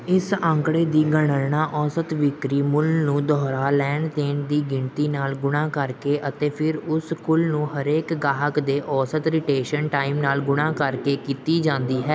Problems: background sounds at intervals